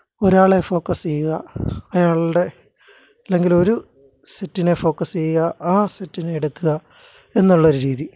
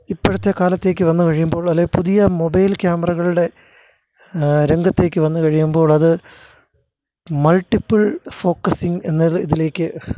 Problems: none marked